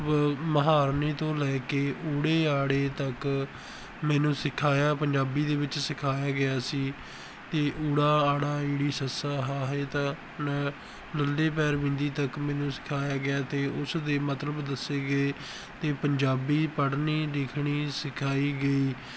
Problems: background sounds at intervals